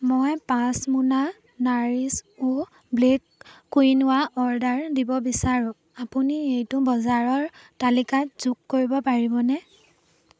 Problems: background sounds at intervals